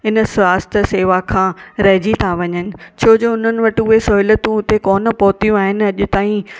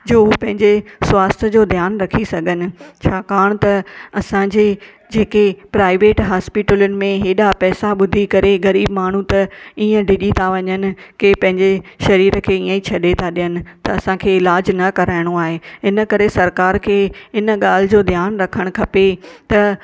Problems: background sounds at intervals